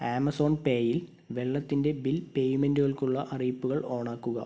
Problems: background sounds at intervals